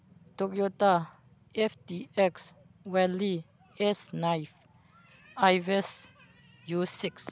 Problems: none marked